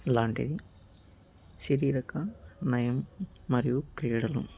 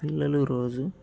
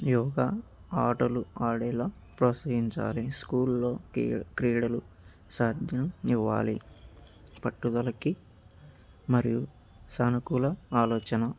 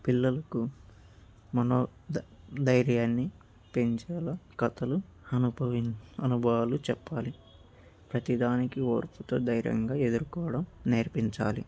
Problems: none marked